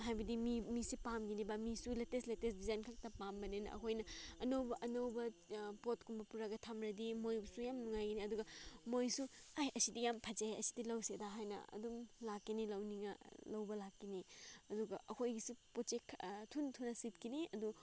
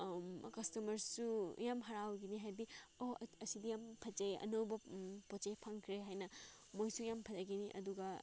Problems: background sounds at intervals